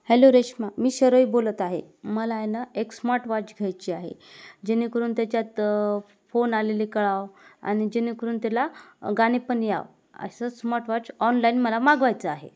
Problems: none marked